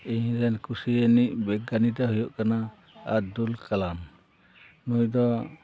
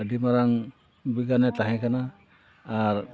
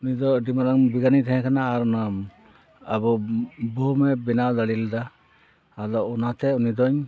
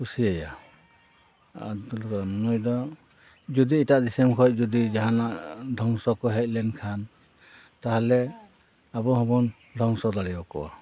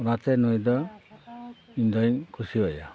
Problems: background conversations at intervals